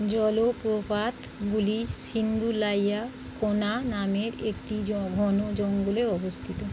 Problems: none marked